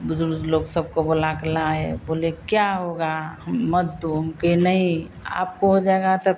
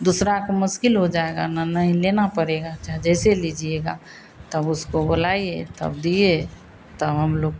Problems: constant background noise